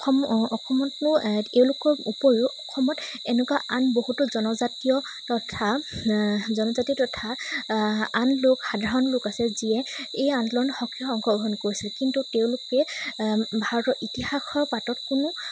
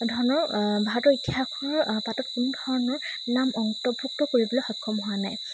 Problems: constant background noise